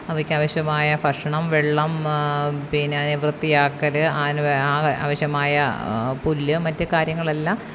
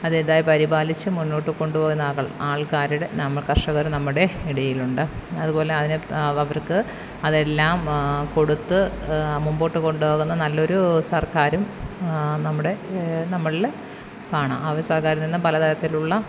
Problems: background sounds at intervals, background conversations at intervals